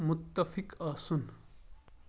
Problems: none marked